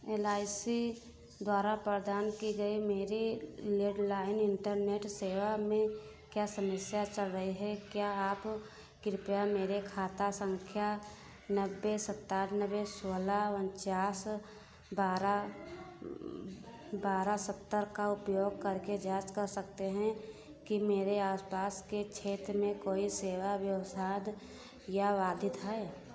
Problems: constant background noise